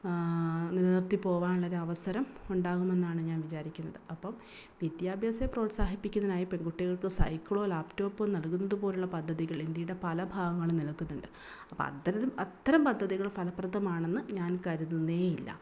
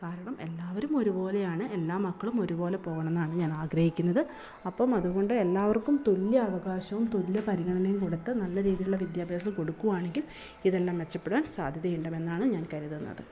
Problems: background sounds at intervals